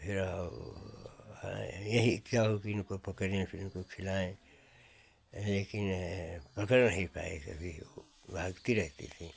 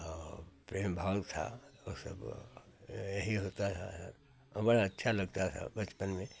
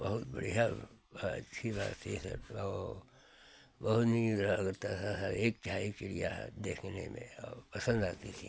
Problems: none marked